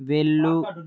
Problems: background conversations at intervals